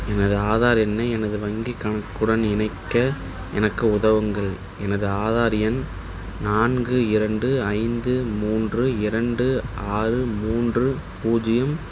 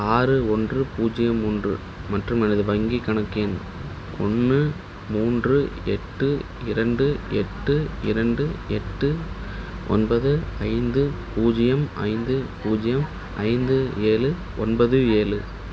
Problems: none marked